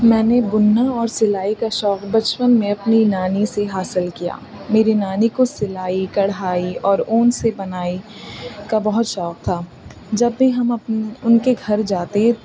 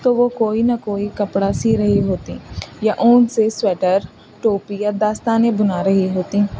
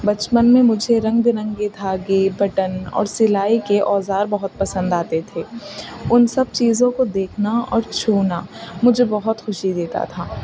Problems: constant background noise